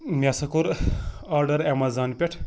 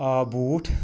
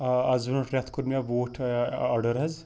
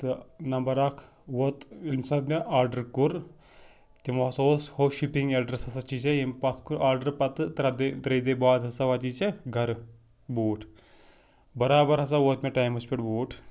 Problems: background sounds at intervals